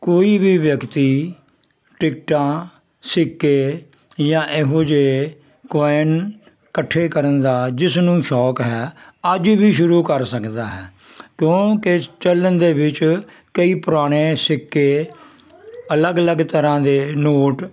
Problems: constant background noise